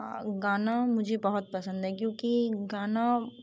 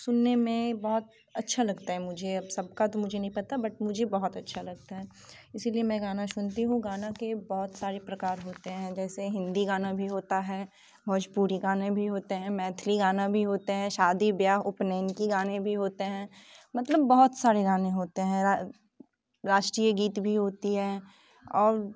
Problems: background sounds at intervals